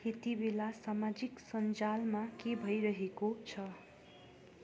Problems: background sounds at intervals